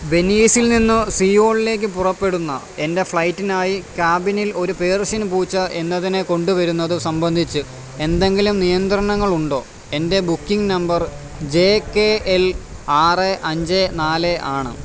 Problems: constant background noise